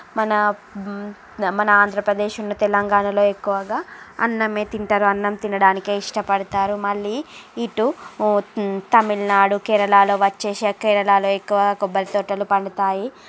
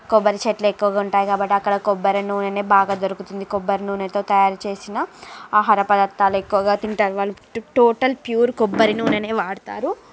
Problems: constant background noise, background conversations at intervals